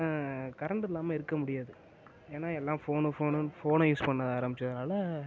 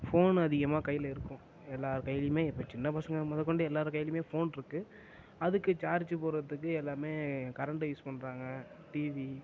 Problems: constant background noise